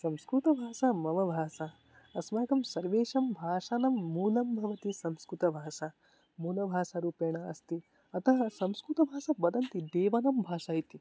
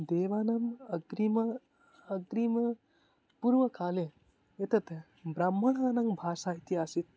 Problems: none marked